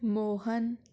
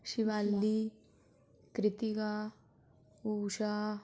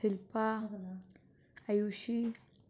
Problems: background sounds at intervals